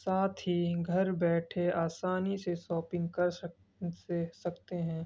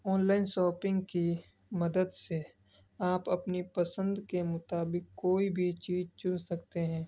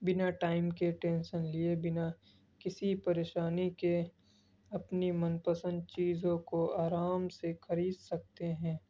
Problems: background sounds at intervals, low volume